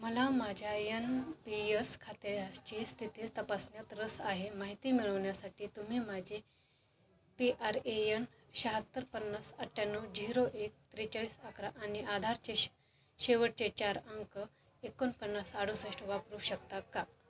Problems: constant background noise, continuous background conversations